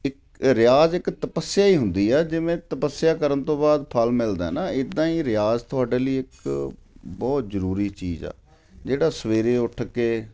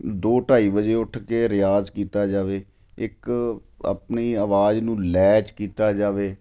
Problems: none marked